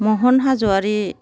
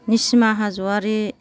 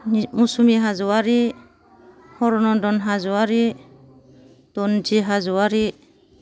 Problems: none marked